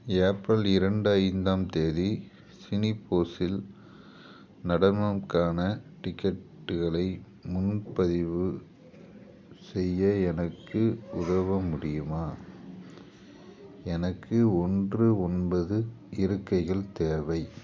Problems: constant background noise